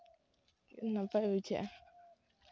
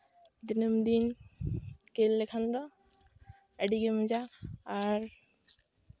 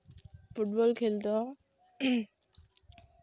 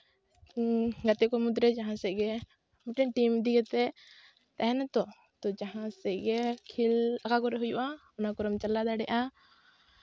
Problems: background sounds at intervals